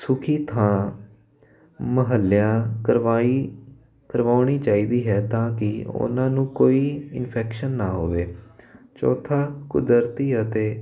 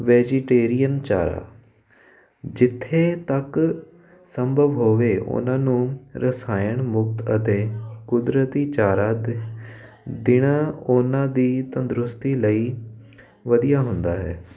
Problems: none marked